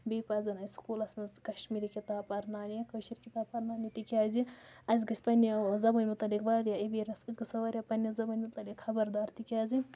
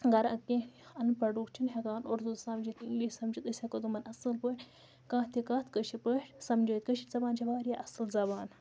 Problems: background sounds at intervals